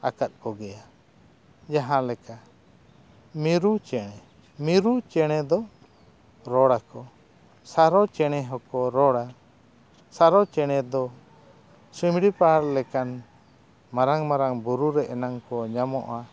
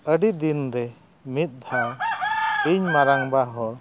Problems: none marked